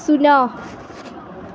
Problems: constant background noise